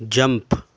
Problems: background sounds at intervals